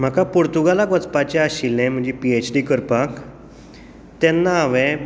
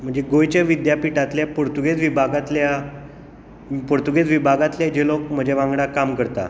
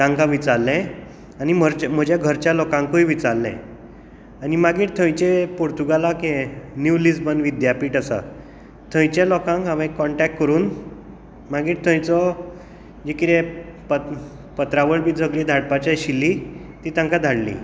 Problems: echo